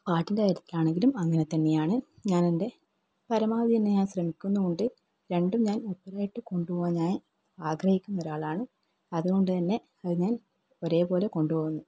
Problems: low volume